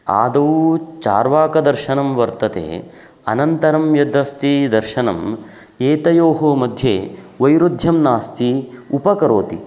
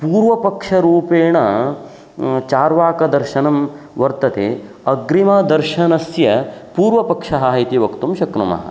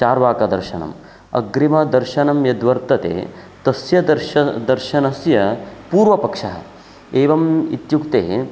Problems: constant background noise